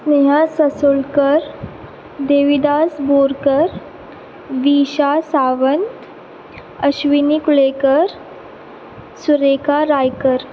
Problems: none marked